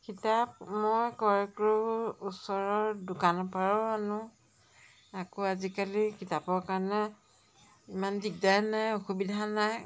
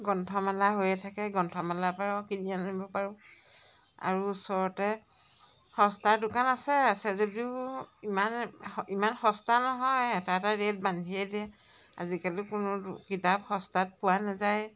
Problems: none marked